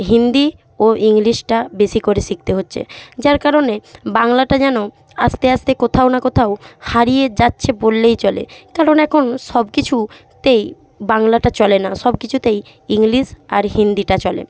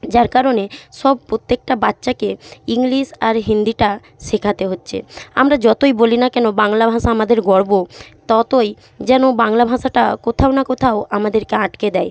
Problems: none marked